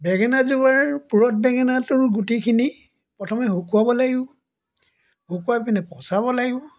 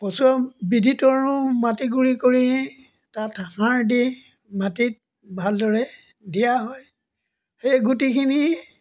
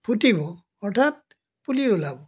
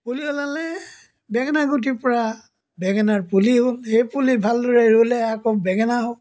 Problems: background sounds at intervals